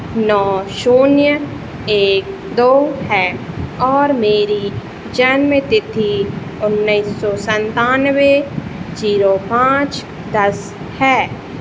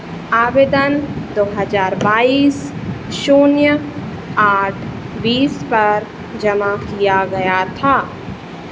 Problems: none marked